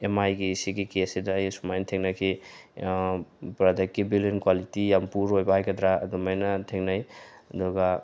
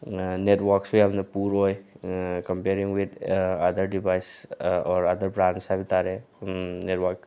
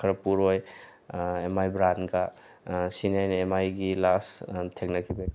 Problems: background sounds at intervals